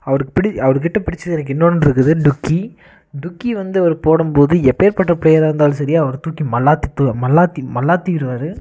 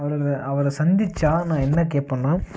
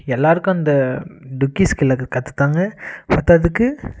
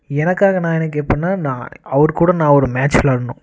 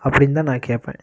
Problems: constant background noise